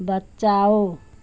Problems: constant background noise